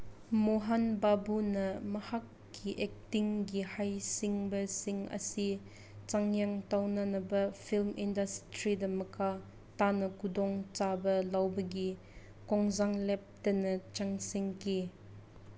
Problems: constant background noise